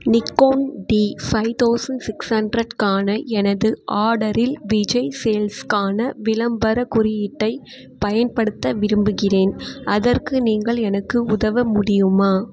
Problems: none marked